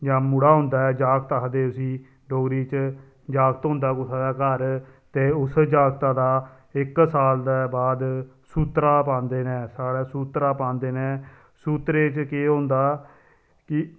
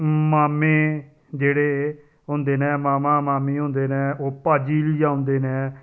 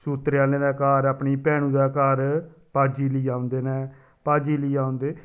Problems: none marked